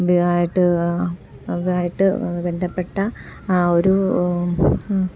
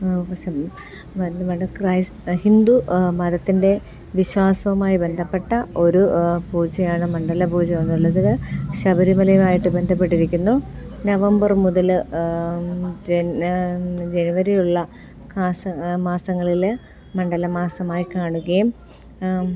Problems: none marked